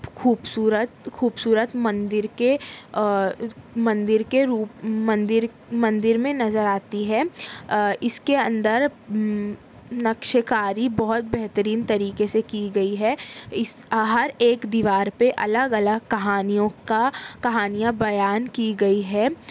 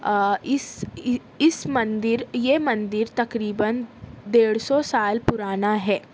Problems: constant background noise